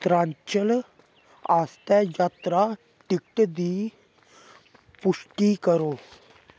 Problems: constant background noise